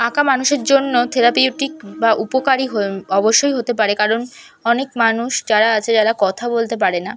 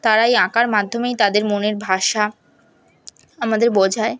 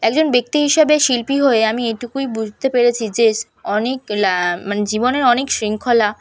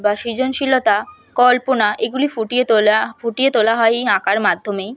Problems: background sounds at intervals, background conversations at intervals